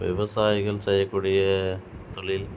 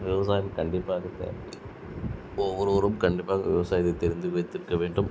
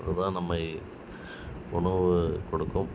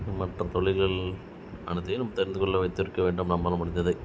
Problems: constant background noise